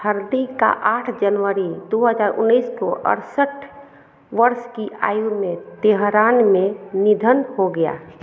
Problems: none marked